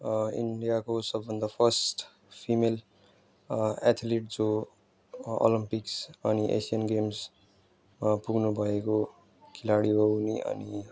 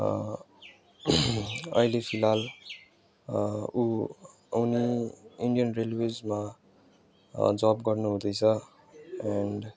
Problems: background conversations at intervals